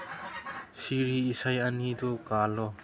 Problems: background sounds at intervals